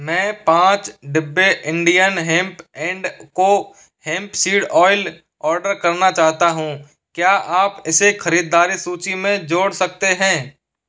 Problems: none marked